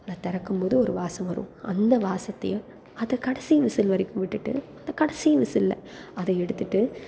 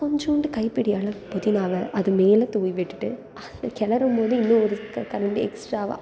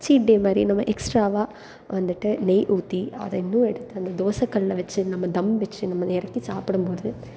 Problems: constant background noise